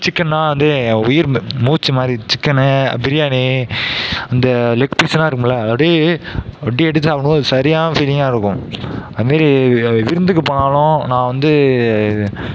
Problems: background sounds at intervals, background conversations at intervals